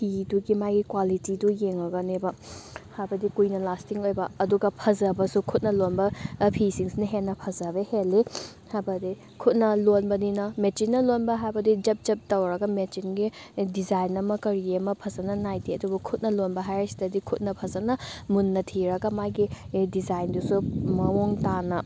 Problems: background sounds at intervals